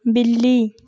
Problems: background sounds at intervals